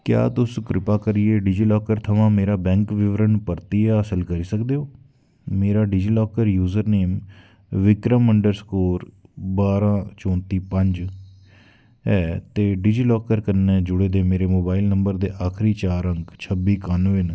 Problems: background sounds at intervals